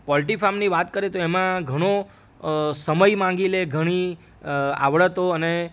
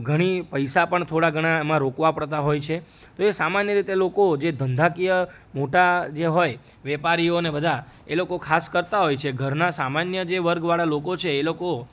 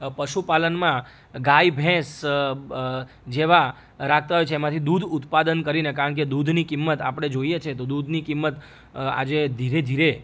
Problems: none marked